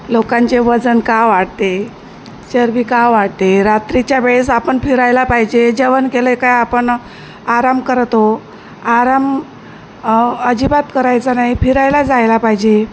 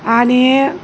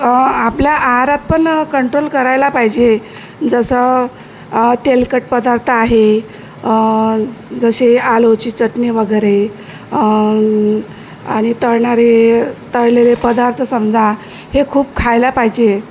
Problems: none marked